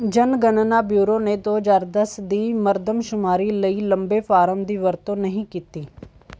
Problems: none marked